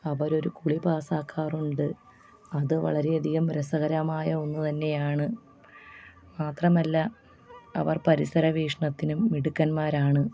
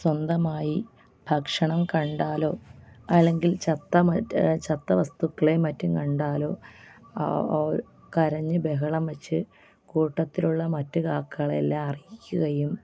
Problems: low volume